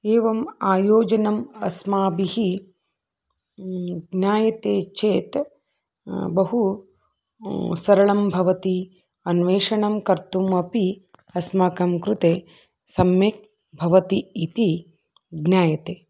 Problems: none marked